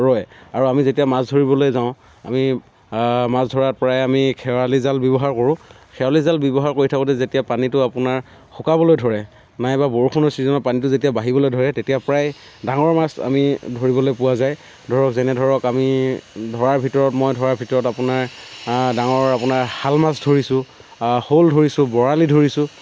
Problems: constant background noise